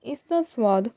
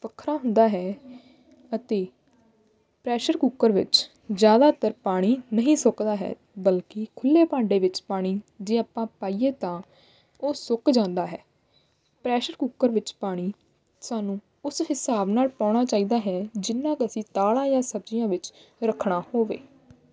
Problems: background sounds at intervals